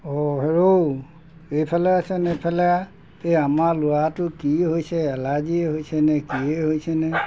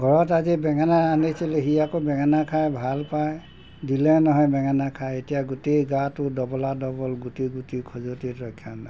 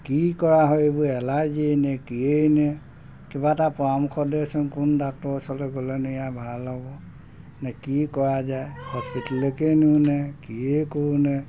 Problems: background sounds at intervals